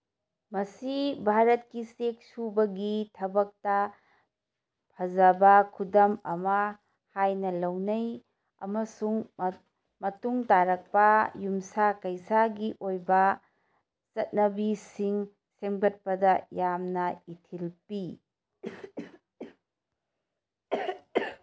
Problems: background sounds at intervals